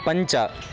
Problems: background sounds at intervals